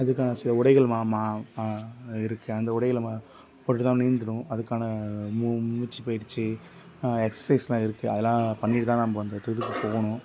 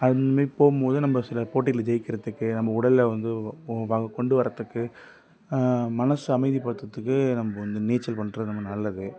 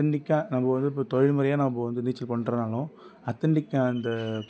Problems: background sounds at intervals